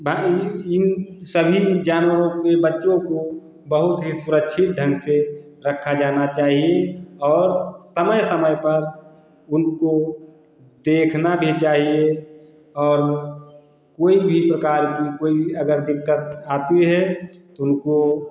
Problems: none marked